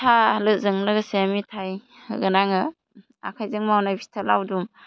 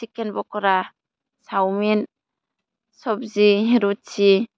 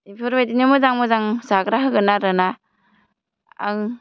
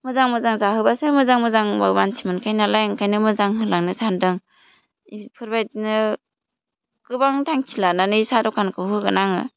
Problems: none marked